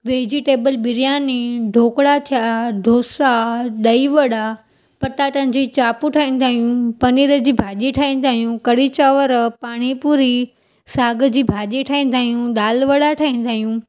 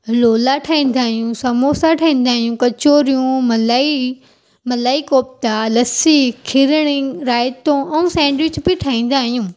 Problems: none marked